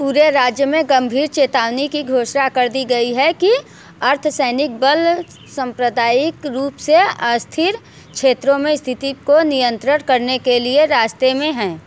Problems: none marked